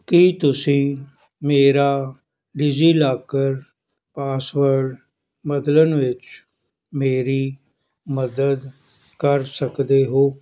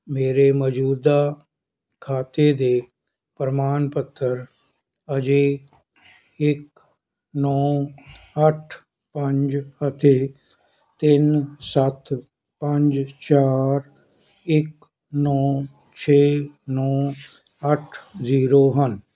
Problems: none marked